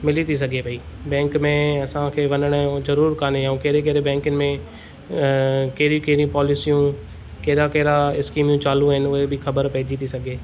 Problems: none marked